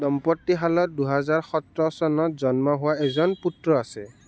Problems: background sounds at intervals